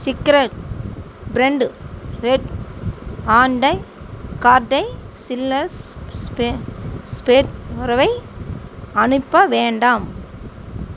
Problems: constant background noise, background conversations at intervals